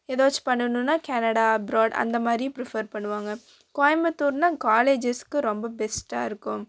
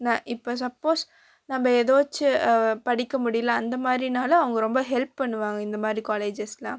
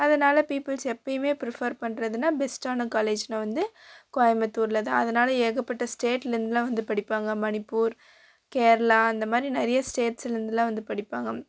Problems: none marked